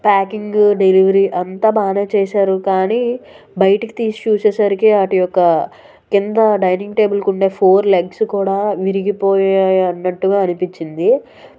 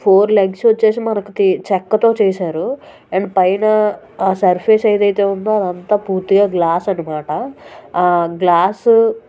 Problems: background sounds at intervals, background conversations at intervals